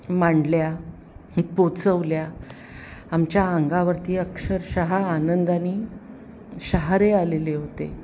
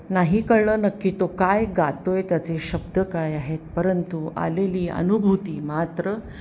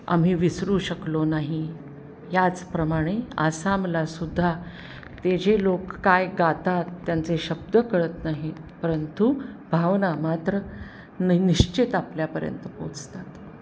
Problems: none marked